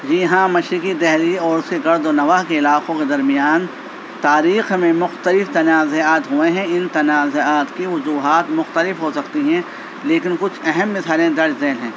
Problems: constant background noise